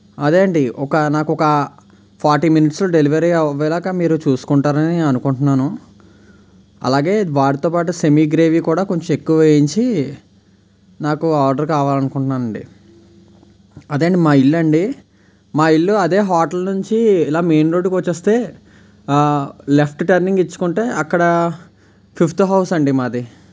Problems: constant background noise